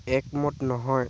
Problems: constant background noise